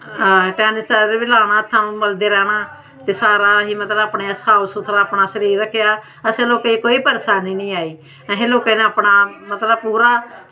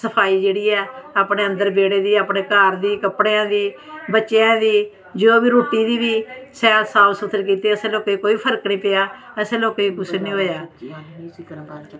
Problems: constant background noise